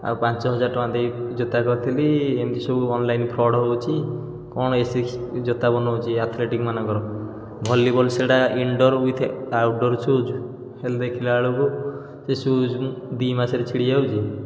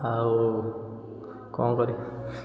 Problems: background sounds at intervals